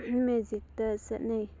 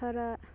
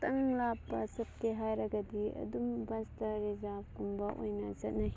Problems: constant background noise, background conversations at intervals